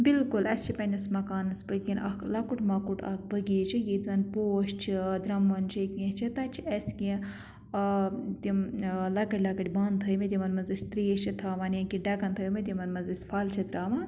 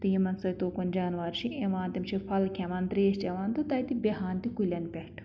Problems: none marked